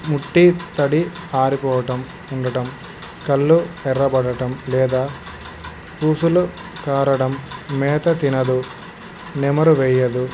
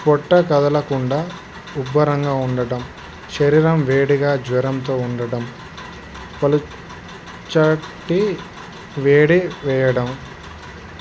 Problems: constant background noise